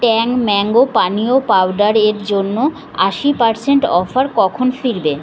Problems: none marked